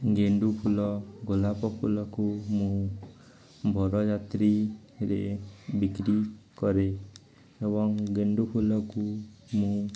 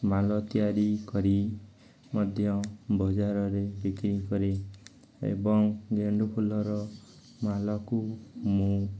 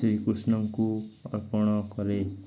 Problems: continuous background conversations